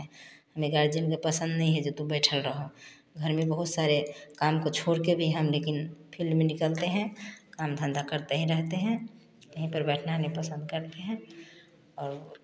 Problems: constant background noise